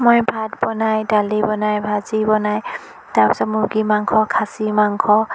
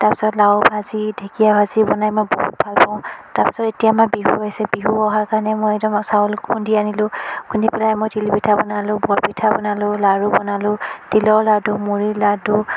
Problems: constant background noise